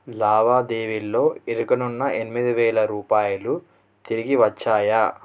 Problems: none marked